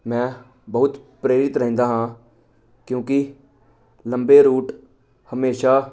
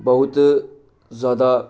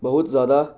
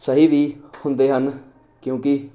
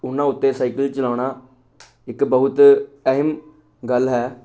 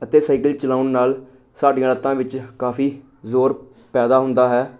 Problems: none marked